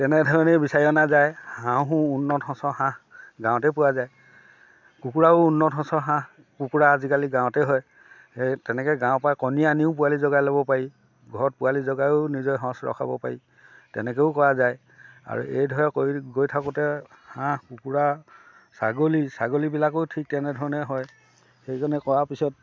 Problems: background sounds at intervals